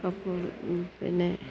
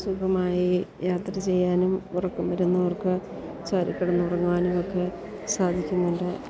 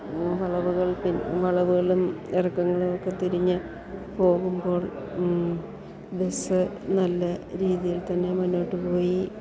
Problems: none marked